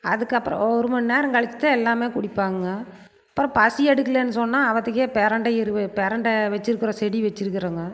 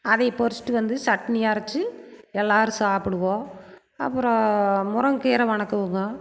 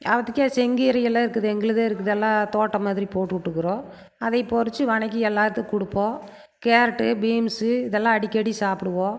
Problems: none marked